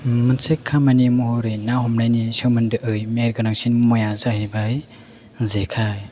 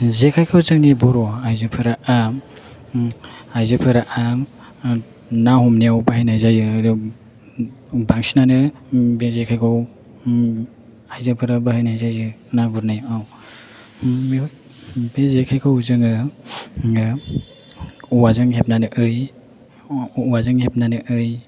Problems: none marked